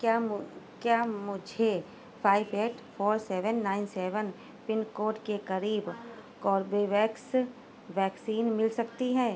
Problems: background sounds at intervals